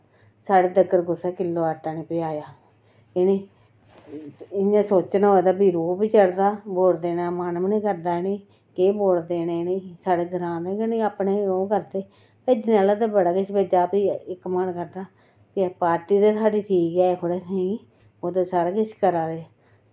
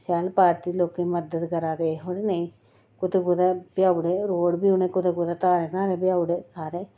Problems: none marked